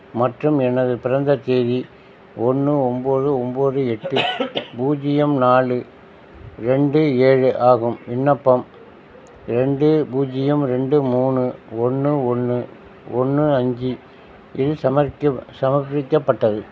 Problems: constant background noise